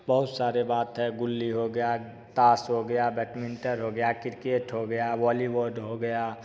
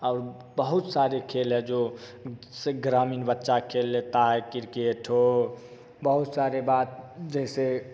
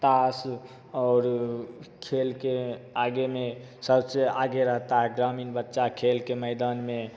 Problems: none marked